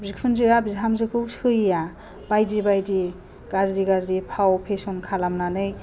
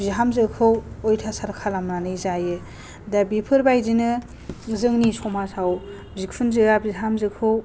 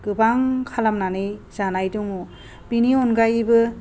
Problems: low volume